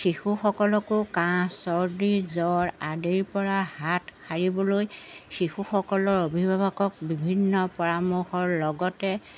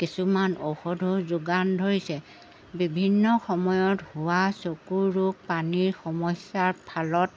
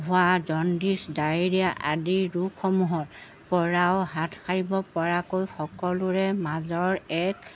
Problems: background sounds at intervals